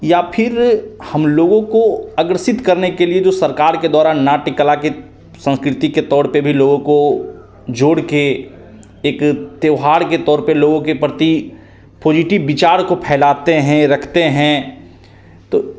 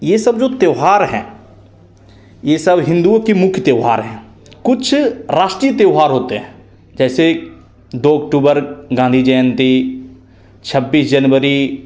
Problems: constant background noise, echo